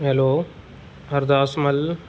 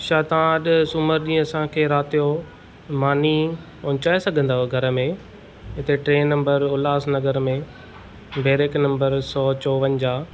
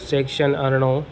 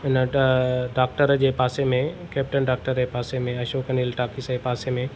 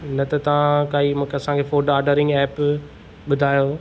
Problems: none marked